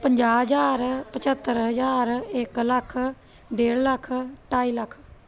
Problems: background conversations at intervals